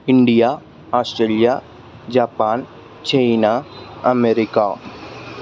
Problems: constant background noise